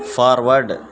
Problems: constant background noise